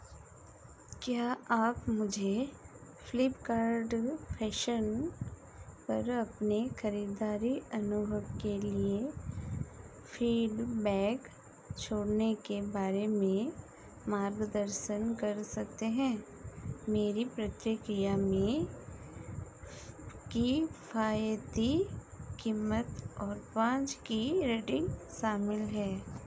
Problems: background sounds at intervals